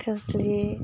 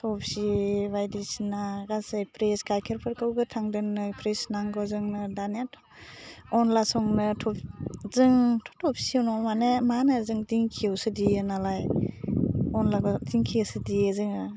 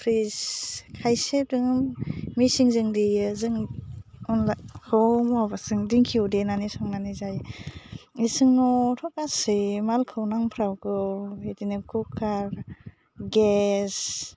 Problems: low volume